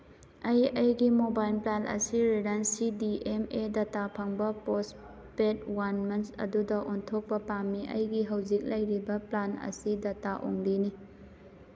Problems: background sounds at intervals